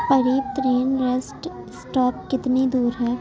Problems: constant background noise, background conversations at intervals, low volume